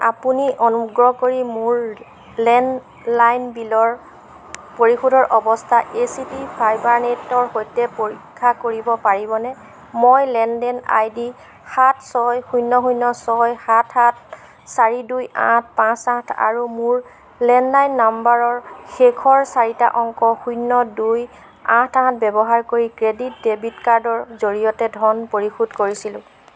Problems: none marked